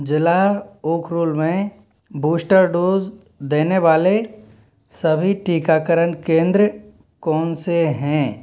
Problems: none marked